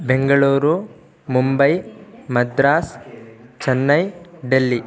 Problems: background sounds at intervals